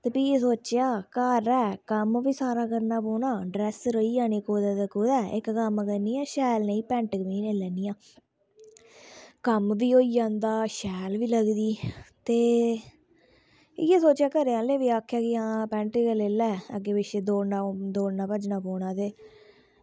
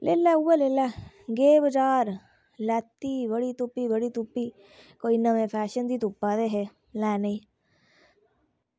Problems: low volume